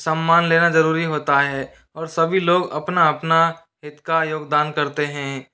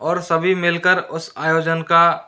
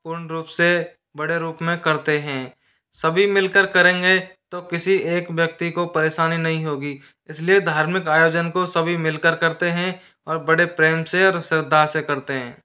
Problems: none marked